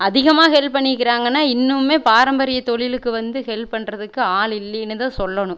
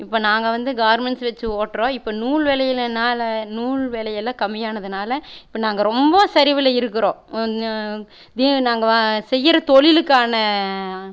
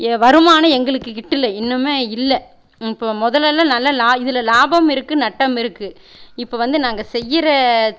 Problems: none marked